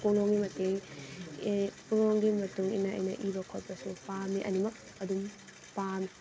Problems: constant background noise, background conversations at intervals